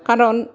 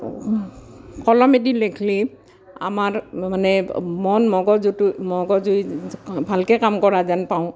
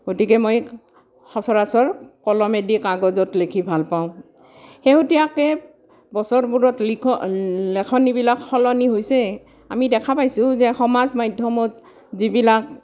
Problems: background sounds at intervals